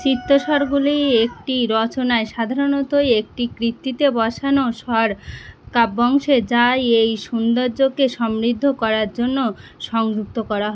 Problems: constant background noise